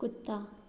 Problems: background sounds at intervals